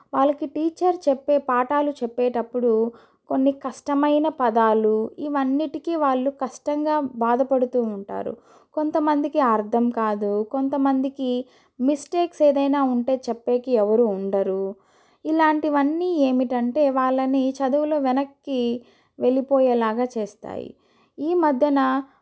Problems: none marked